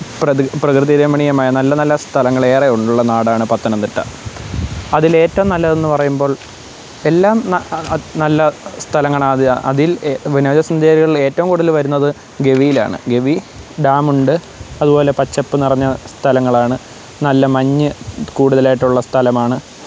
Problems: background sounds at intervals